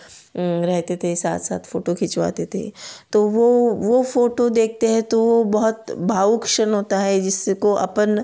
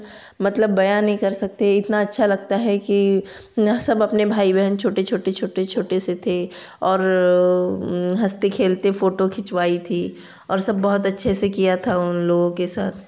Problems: none marked